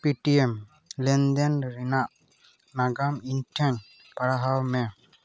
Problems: background sounds at intervals, continuous background conversations